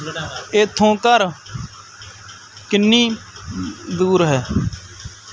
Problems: background conversations at intervals